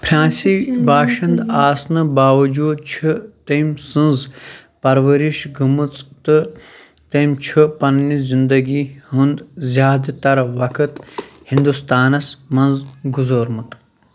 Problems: background sounds at intervals, background conversations at intervals